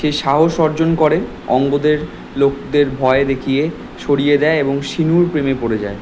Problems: constant background noise